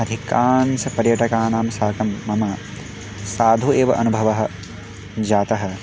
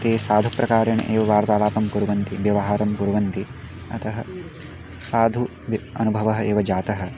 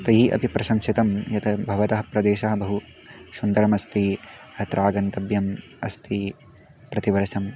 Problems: background sounds at intervals